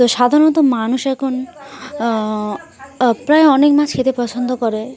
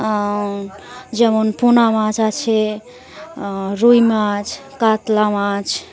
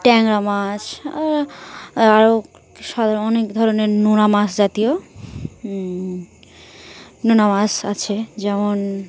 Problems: none marked